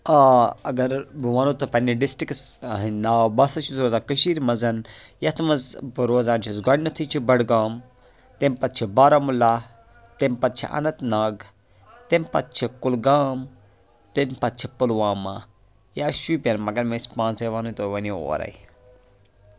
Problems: background sounds at intervals, background conversations at intervals